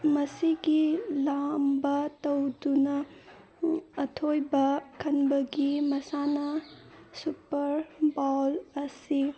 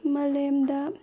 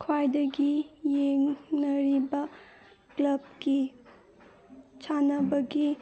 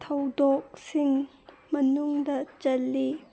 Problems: background sounds at intervals